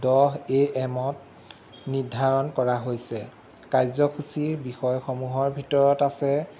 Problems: constant background noise